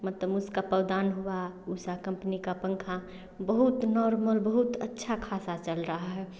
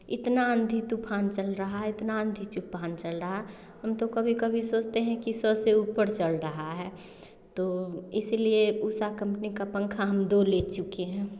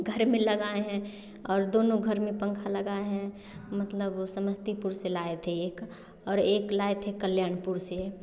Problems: none marked